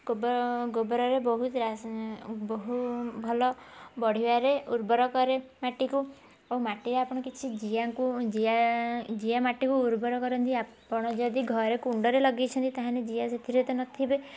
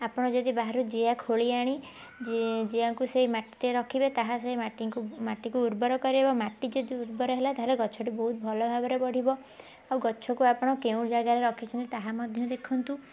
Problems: background conversations at intervals